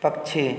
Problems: none marked